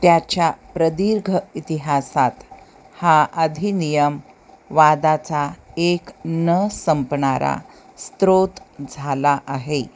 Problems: constant background noise